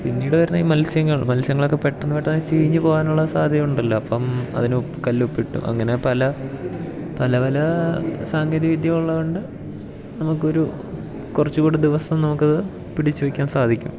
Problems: background sounds at intervals